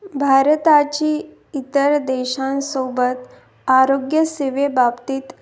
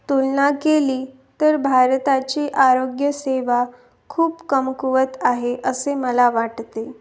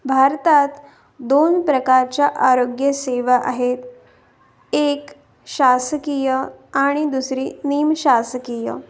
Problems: constant background noise